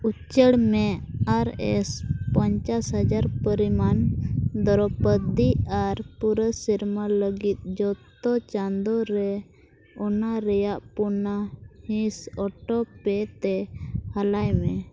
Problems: none marked